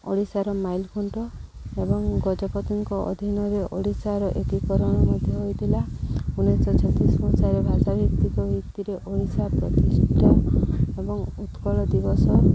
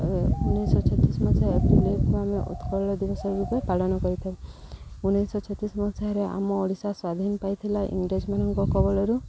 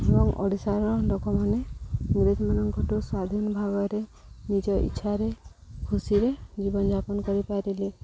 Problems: background sounds at intervals